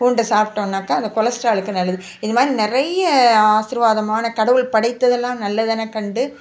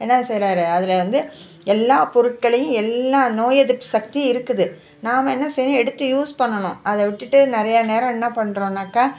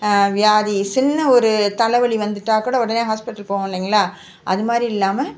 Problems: background sounds at intervals